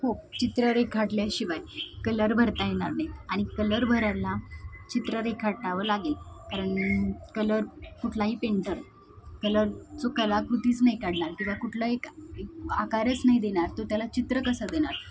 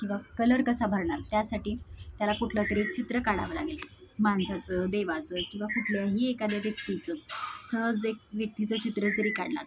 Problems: constant background noise, background conversations at intervals